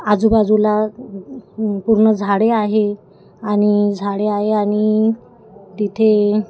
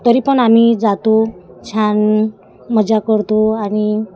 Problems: constant background noise, continuous background conversations